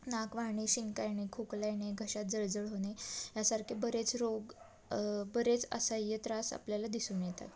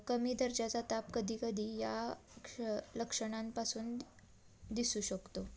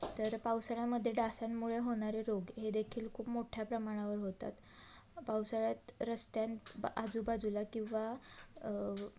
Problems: constant background noise, background conversations at intervals